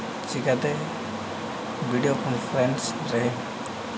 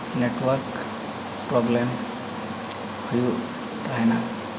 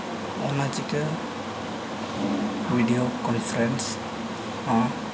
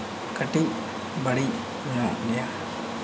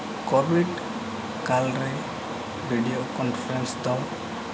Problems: constant background noise